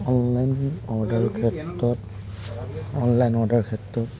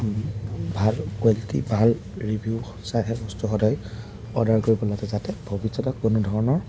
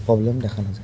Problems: none marked